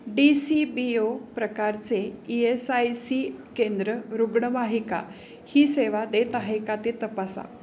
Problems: constant background noise